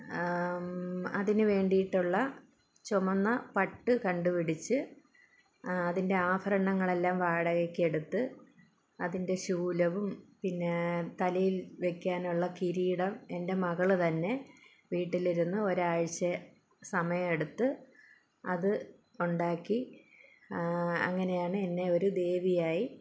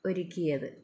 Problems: low volume